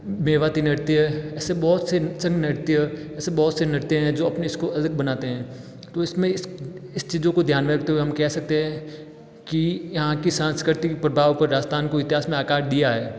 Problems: background sounds at intervals